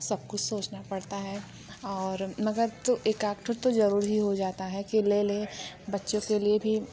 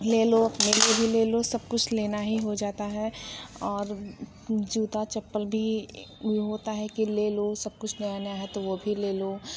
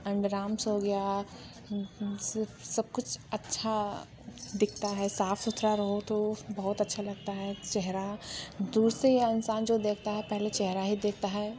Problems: constant background noise, background conversations at intervals